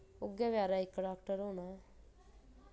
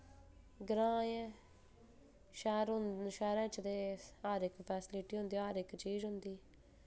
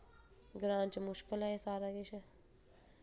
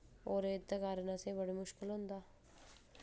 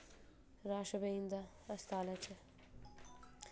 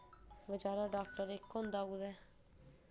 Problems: background sounds at intervals, low volume